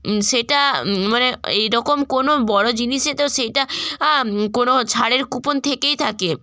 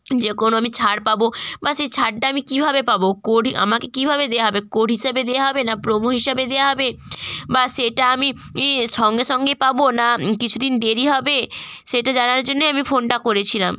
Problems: none marked